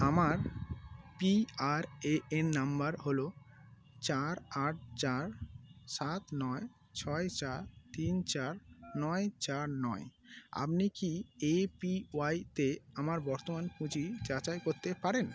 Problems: constant background noise